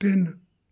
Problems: background sounds at intervals